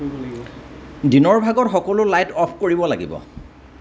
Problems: none marked